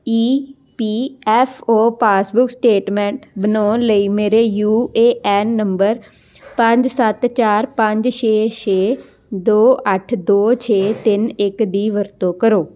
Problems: background sounds at intervals